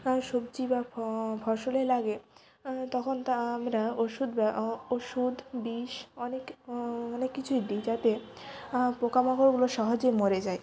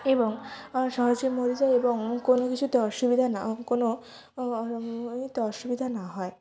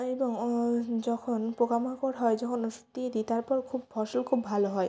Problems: constant background noise, continuous background conversations